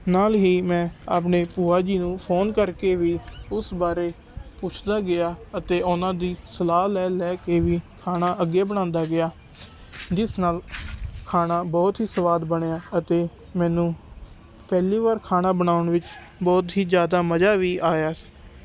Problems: background sounds at intervals